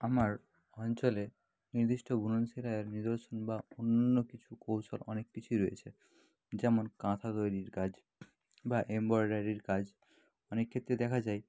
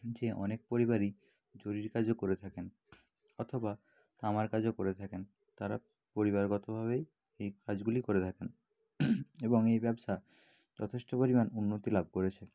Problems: background sounds at intervals, low volume